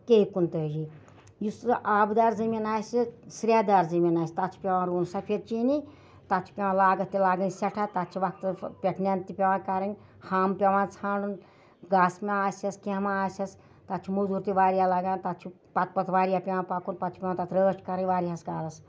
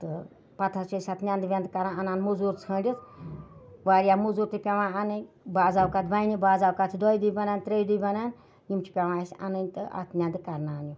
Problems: none marked